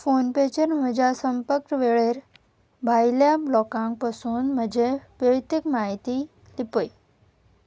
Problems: background sounds at intervals